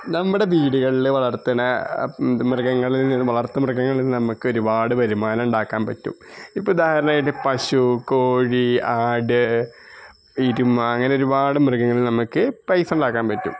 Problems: background sounds at intervals